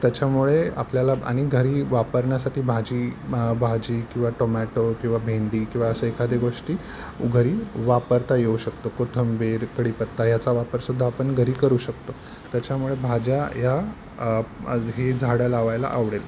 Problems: none marked